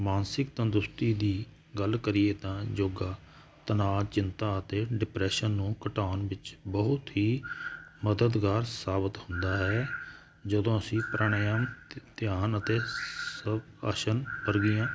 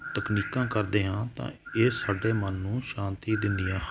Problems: none marked